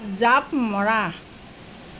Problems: none marked